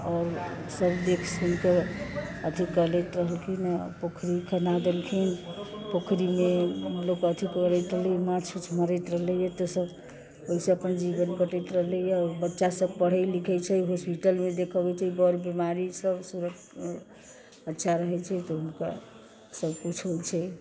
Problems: constant background noise